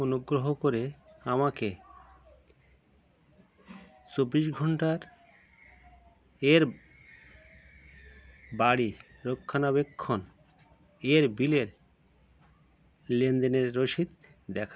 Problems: constant background noise